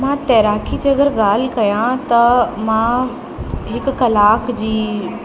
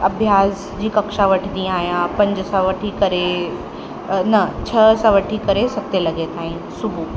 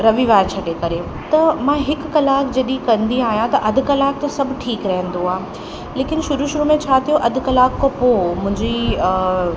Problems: constant background noise, echo